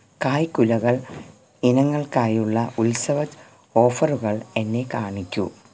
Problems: background sounds at intervals